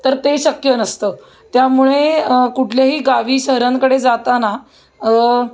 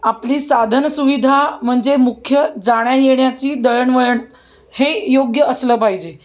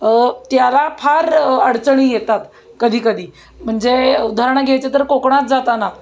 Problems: constant background noise, background conversations at intervals